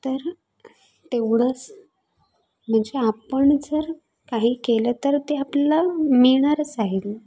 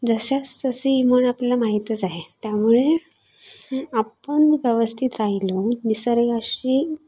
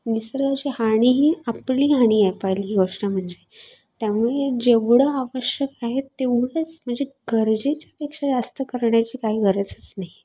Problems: constant background noise